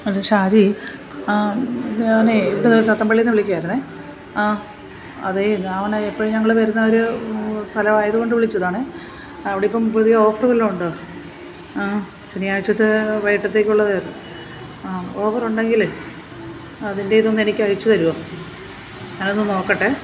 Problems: constant background noise